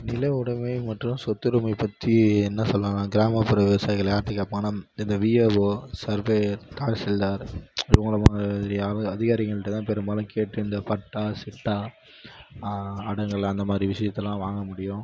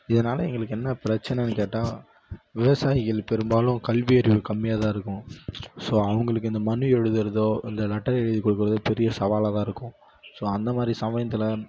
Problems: none marked